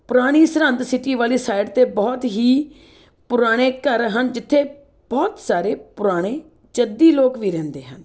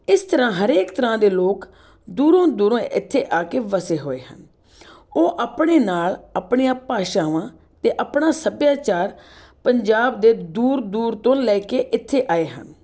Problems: background sounds at intervals